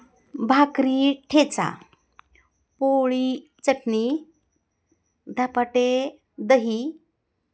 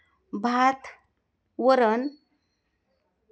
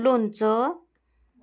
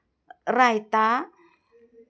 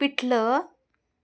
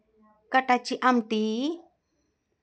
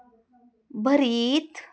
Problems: none marked